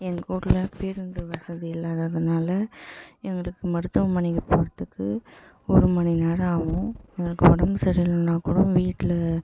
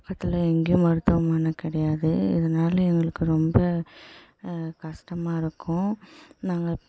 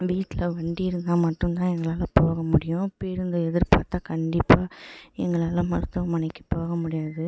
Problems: echo, low volume